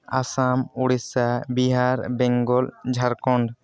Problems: background conversations at intervals